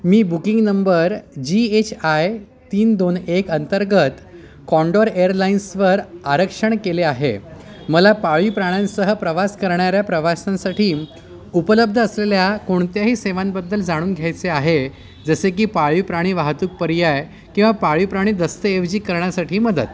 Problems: constant background noise, continuous background conversations